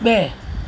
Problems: none marked